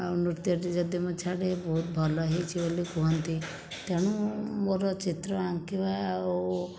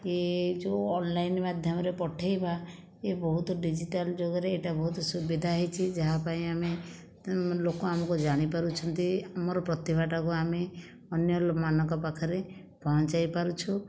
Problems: background sounds at intervals